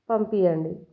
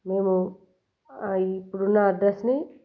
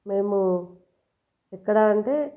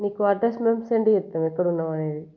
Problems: background sounds at intervals